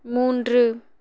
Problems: none marked